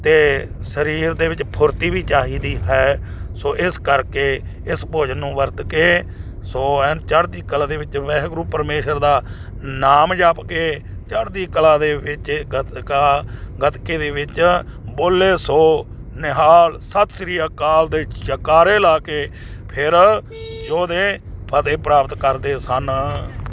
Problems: constant background noise